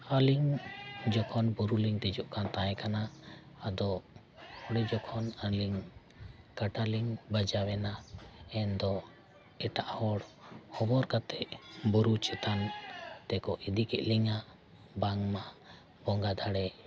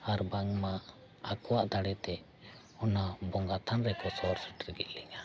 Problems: none marked